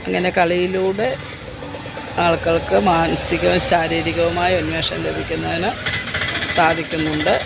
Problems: constant background noise